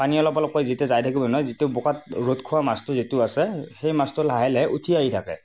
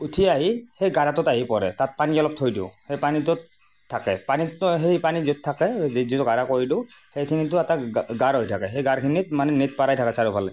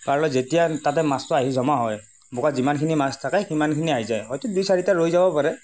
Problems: constant background noise